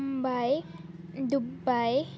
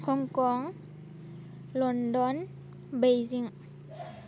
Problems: low volume